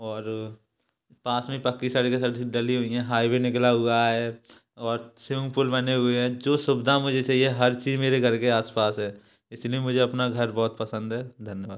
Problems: background sounds at intervals